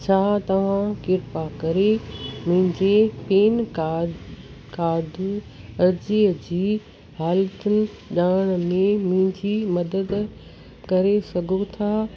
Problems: constant background noise, background conversations at intervals